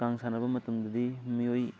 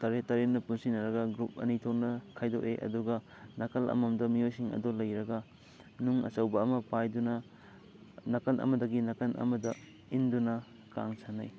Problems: constant background noise, background conversations at intervals